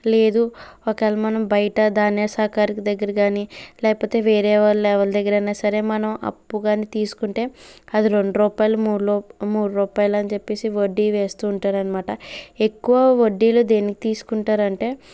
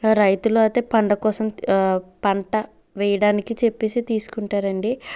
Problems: background sounds at intervals